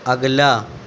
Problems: constant background noise